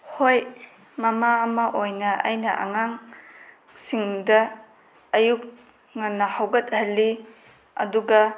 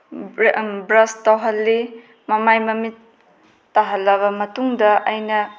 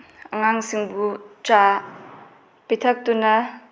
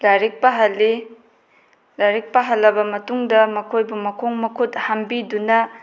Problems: none marked